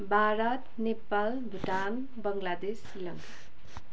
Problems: background sounds at intervals